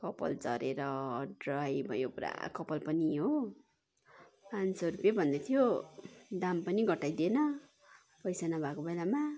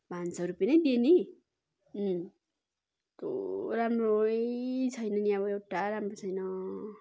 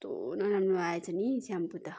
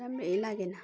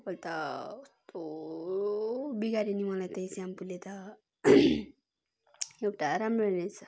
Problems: continuous background conversations